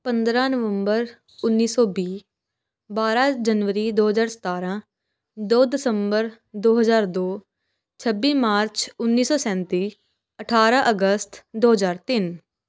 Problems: background sounds at intervals